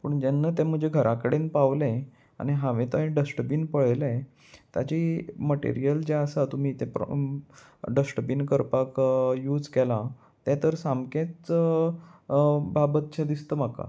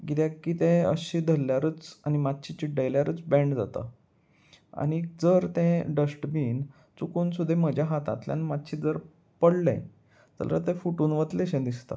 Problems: none marked